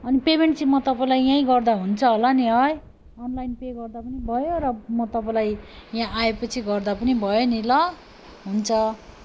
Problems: none marked